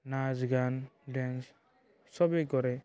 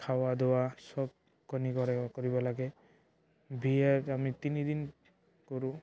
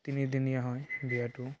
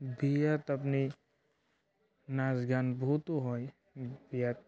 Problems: none marked